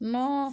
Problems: low volume